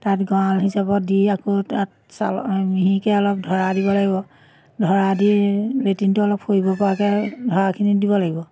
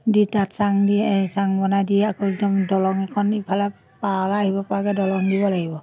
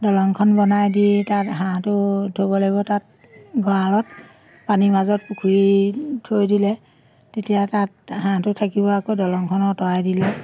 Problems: constant background noise, background conversations at intervals